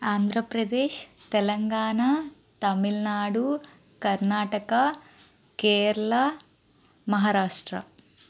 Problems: constant background noise